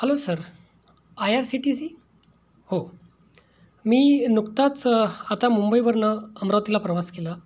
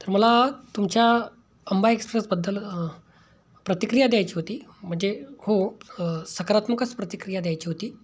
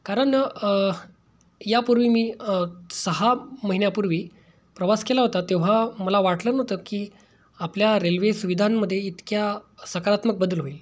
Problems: background sounds at intervals